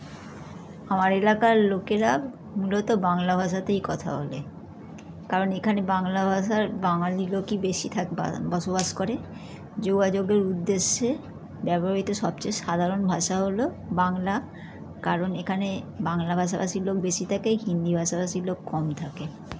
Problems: constant background noise, background conversations at intervals